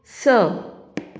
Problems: none marked